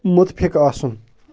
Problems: background sounds at intervals